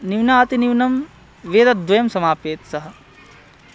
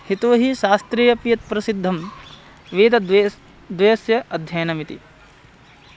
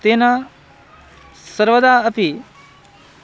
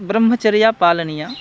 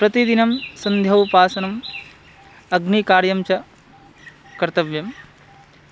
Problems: constant background noise